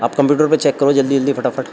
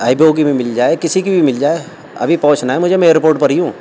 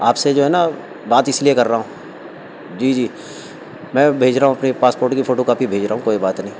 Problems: constant background noise